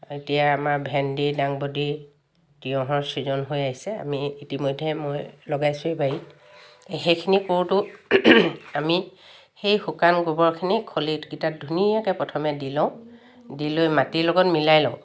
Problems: none marked